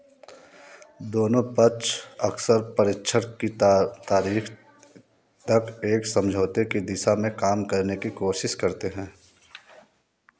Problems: continuous background conversations